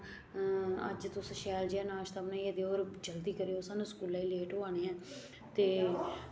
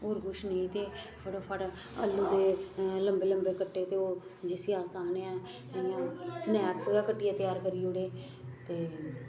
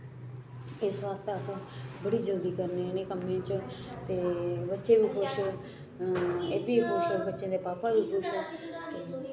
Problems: constant background noise